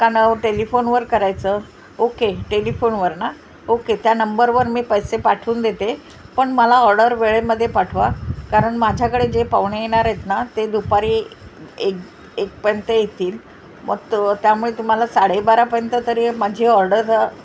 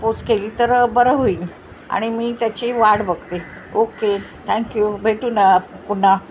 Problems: constant background noise